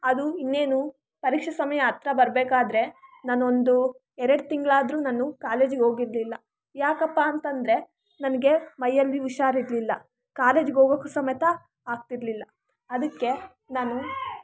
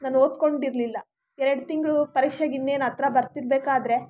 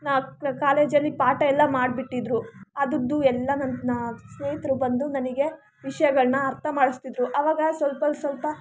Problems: background sounds at intervals